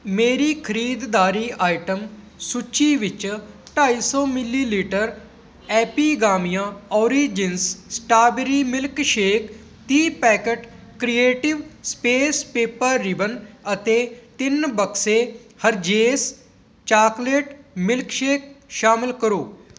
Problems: none marked